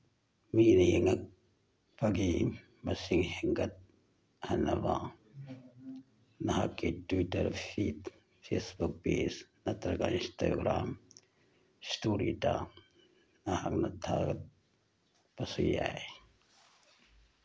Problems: background sounds at intervals